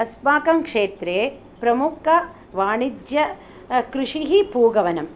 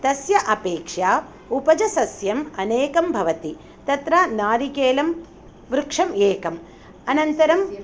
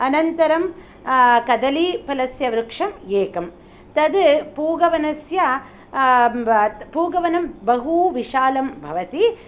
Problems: none marked